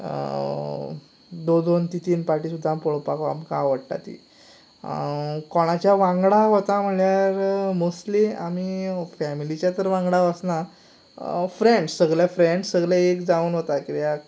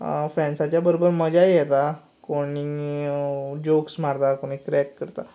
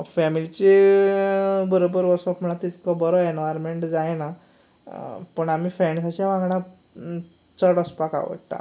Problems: background sounds at intervals